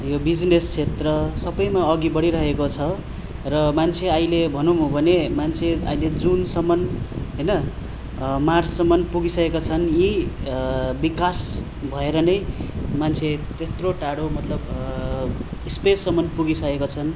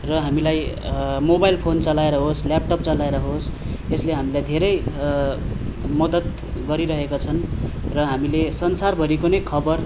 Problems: constant background noise